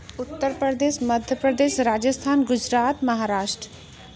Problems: constant background noise